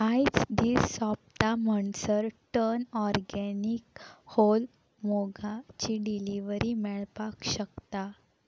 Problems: background sounds at intervals